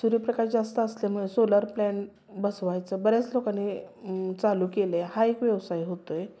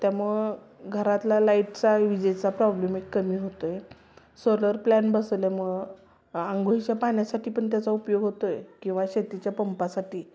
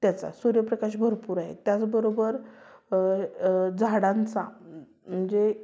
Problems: constant background noise, continuous background conversations